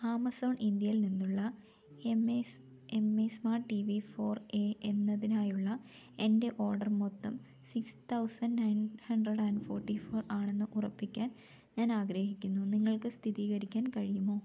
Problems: none marked